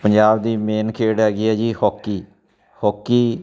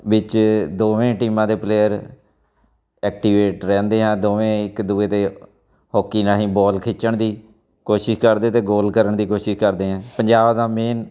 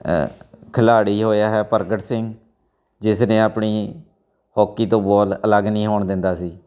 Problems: background sounds at intervals, continuous background conversations